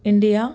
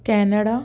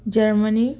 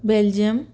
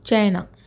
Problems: none marked